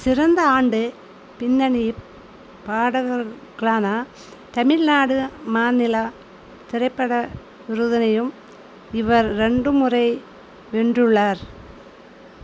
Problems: constant background noise